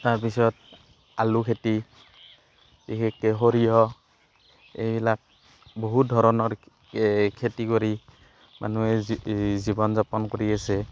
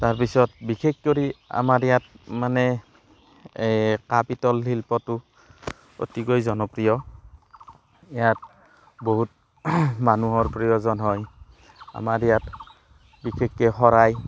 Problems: constant background noise, background conversations at intervals